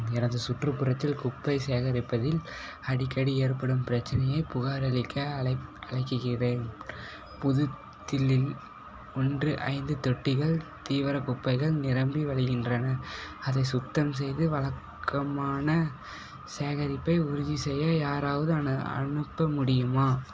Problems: background sounds at intervals